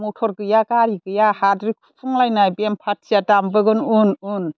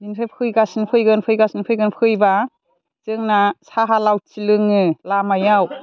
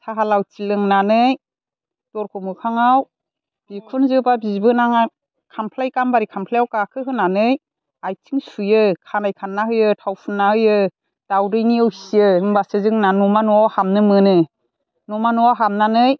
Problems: none marked